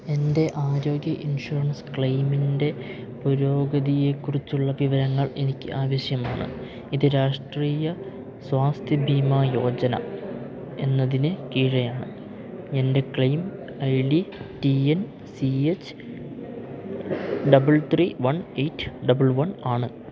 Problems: background sounds at intervals, low volume